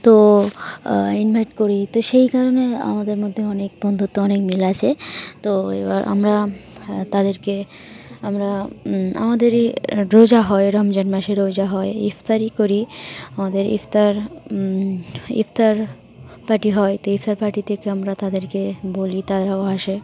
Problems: none marked